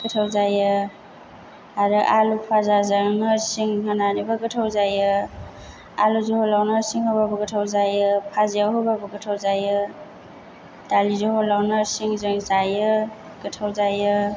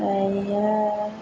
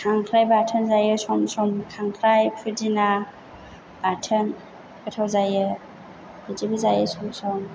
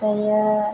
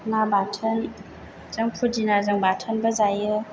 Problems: none marked